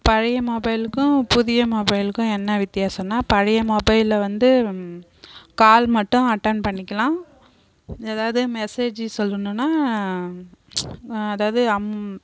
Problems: background conversations at intervals